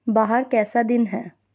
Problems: constant background noise